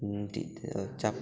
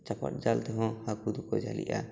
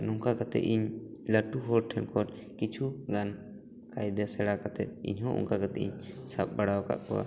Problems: background conversations at intervals